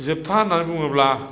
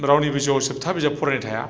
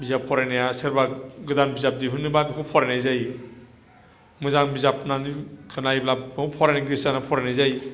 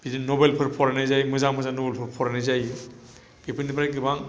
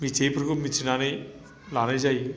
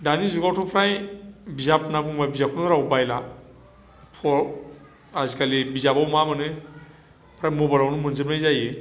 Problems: low volume